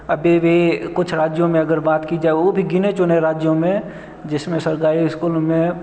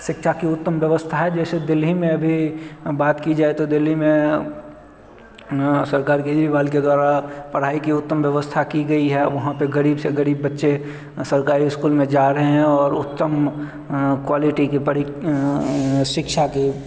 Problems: none marked